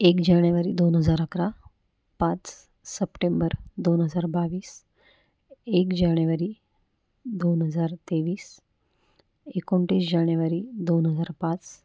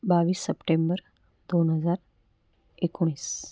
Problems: none marked